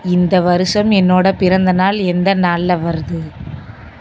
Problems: constant background noise